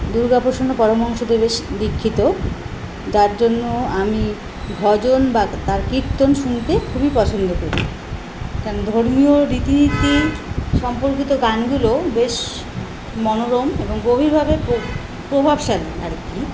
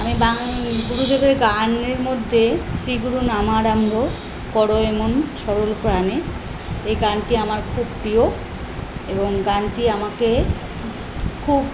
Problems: none marked